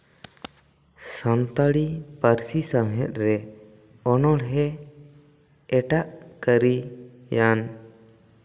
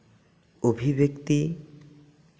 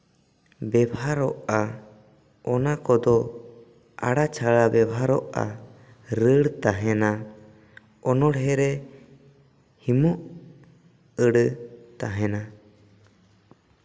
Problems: none marked